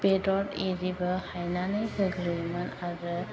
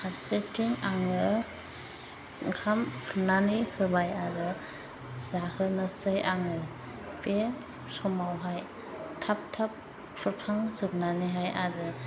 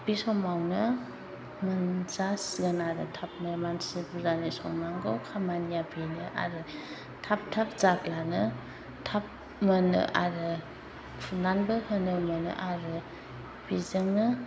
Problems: constant background noise